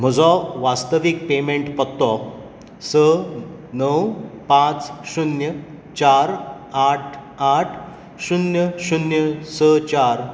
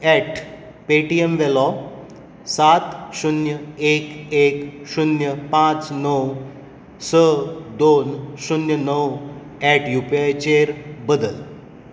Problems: echo